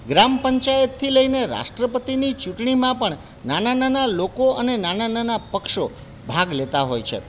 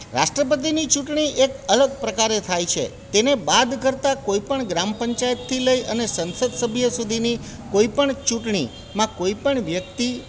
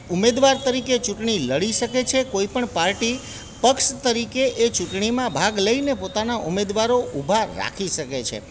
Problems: none marked